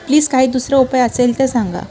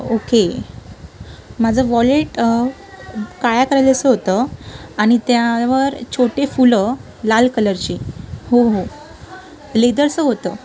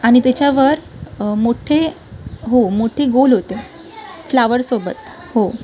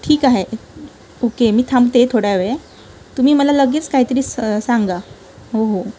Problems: constant background noise, continuous background conversations